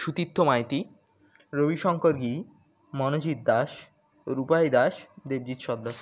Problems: background sounds at intervals